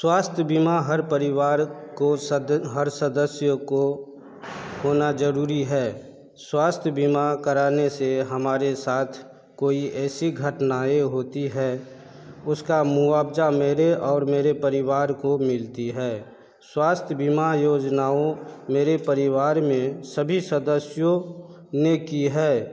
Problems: background conversations at intervals